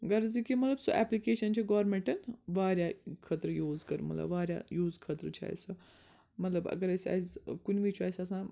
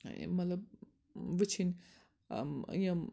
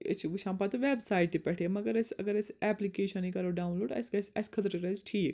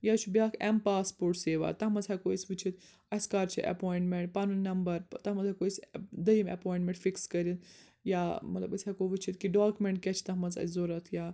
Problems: none marked